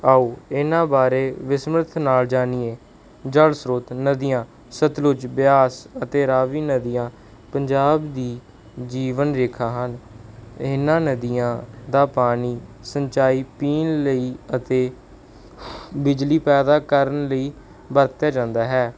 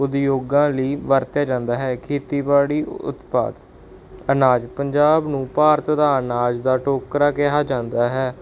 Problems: background sounds at intervals